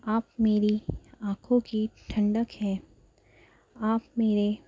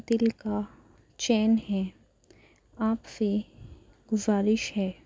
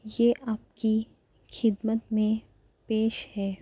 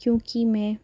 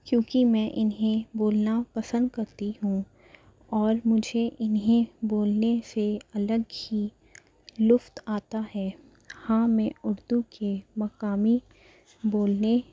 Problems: none marked